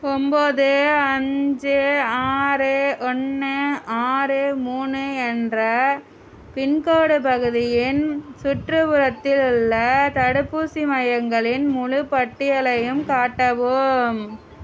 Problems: background sounds at intervals